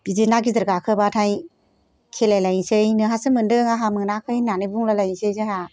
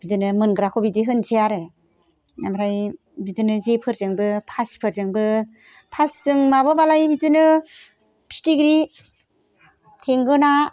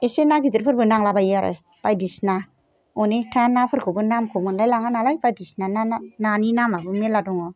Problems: background sounds at intervals